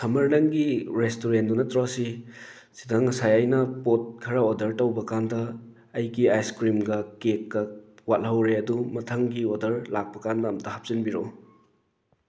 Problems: background sounds at intervals